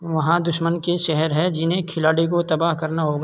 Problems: constant background noise